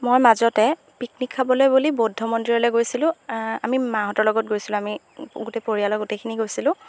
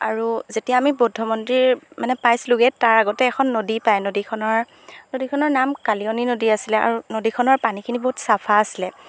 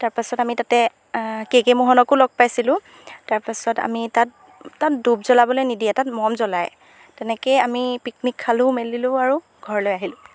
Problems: background sounds at intervals